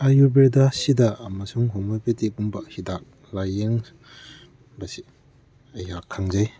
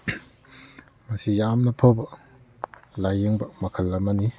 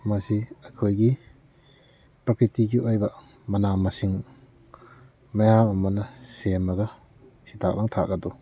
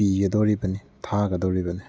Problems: background sounds at intervals, background conversations at intervals